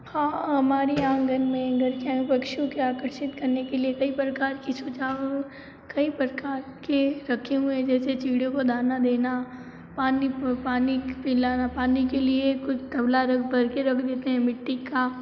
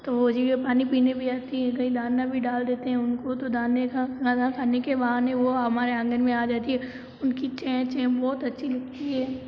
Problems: constant background noise